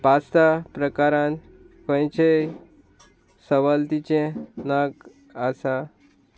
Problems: constant background noise